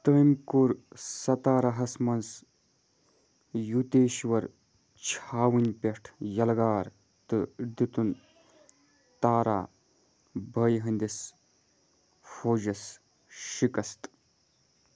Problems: none marked